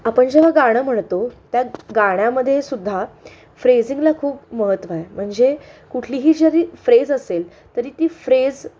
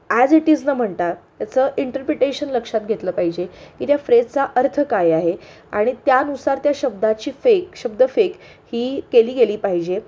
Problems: none marked